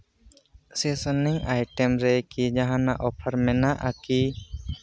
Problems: background sounds at intervals